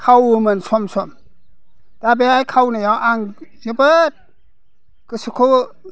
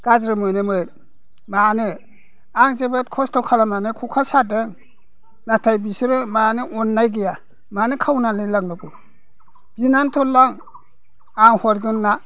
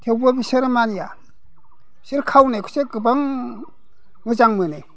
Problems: background conversations at intervals